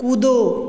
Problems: none marked